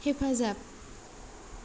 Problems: low volume